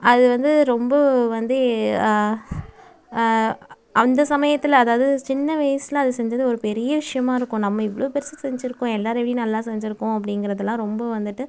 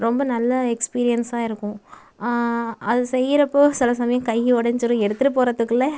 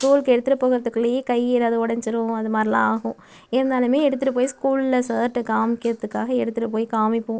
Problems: none marked